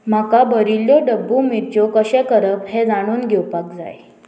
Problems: constant background noise